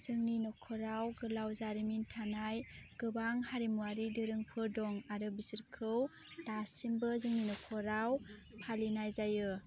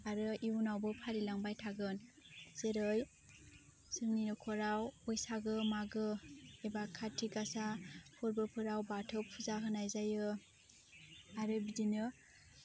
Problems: constant background noise